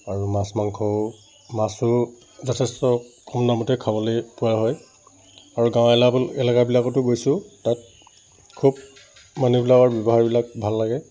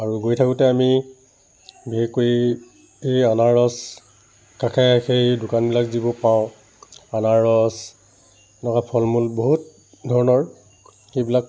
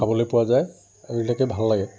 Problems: constant background noise